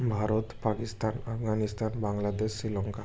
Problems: constant background noise